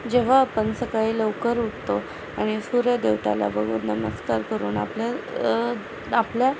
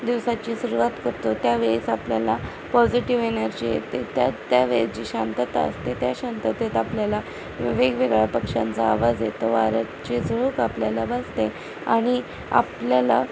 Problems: constant background noise, background conversations at intervals